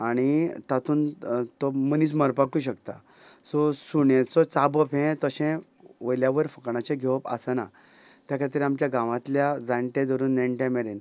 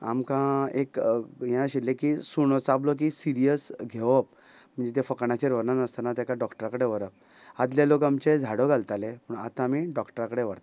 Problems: constant background noise